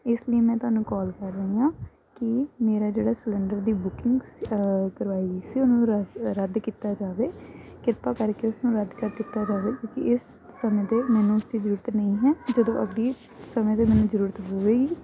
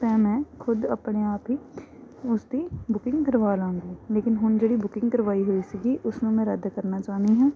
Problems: background sounds at intervals